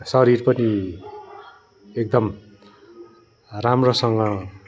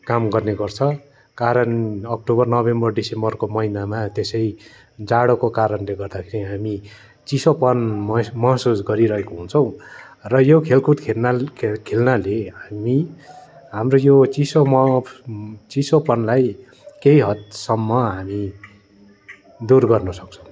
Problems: continuous background conversations